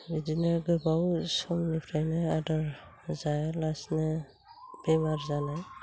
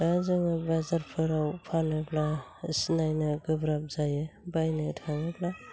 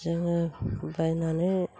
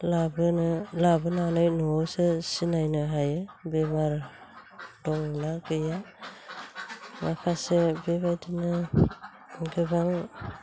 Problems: constant background noise